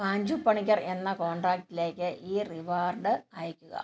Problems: none marked